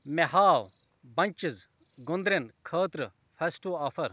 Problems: background conversations at intervals